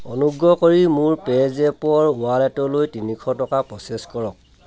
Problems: constant background noise, background conversations at intervals